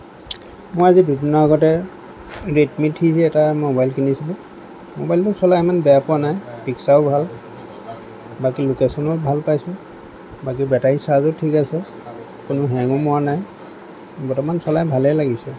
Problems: background conversations at intervals